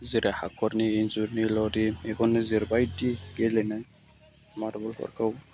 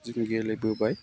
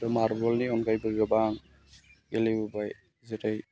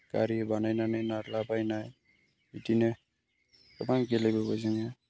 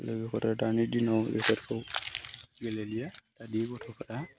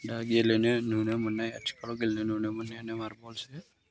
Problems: background sounds at intervals